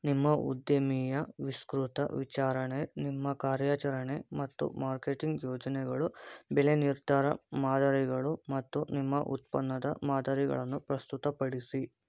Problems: none marked